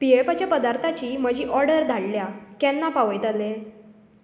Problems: none marked